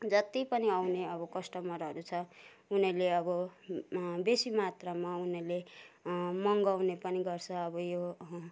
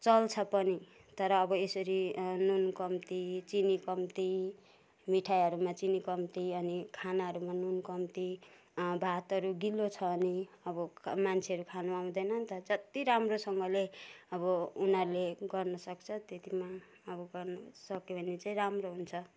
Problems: none marked